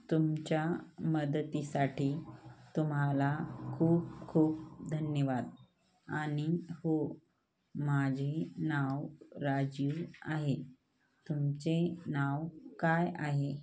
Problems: none marked